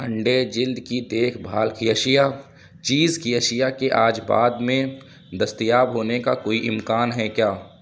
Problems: none marked